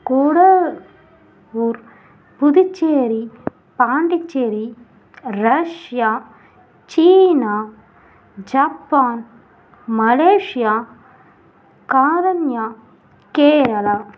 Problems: none marked